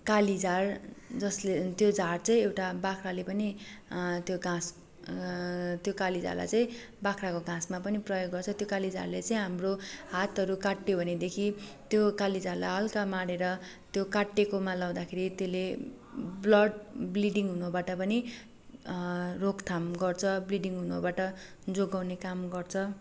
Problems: none marked